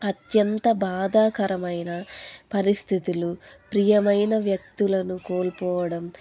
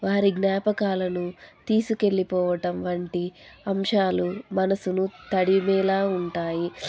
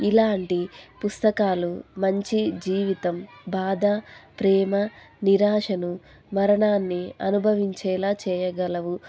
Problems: constant background noise